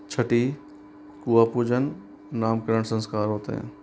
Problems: constant background noise